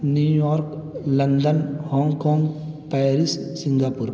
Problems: constant background noise